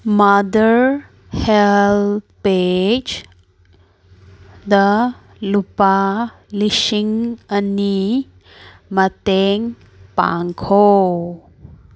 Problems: none marked